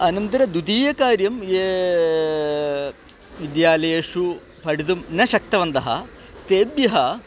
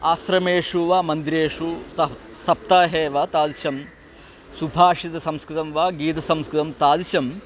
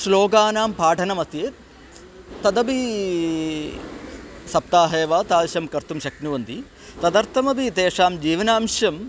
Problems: constant background noise